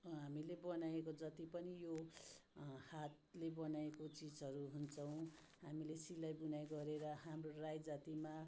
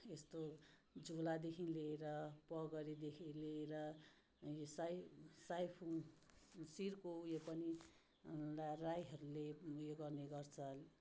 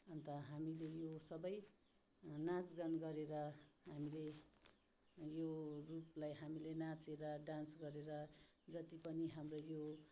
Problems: low volume